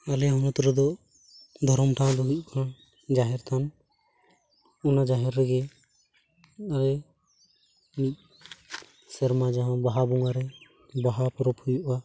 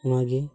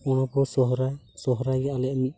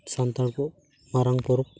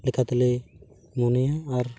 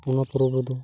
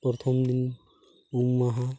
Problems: constant background noise